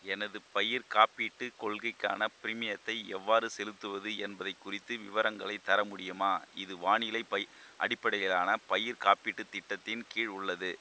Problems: constant background noise